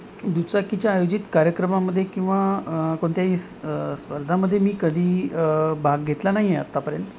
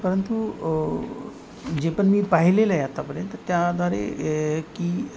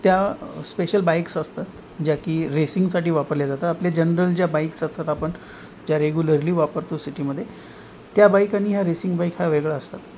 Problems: none marked